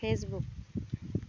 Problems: constant background noise